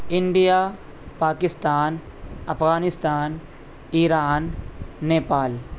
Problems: constant background noise